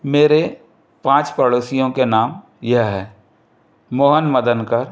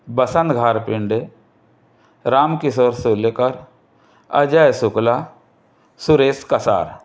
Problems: constant background noise